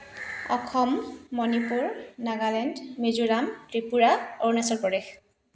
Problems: none marked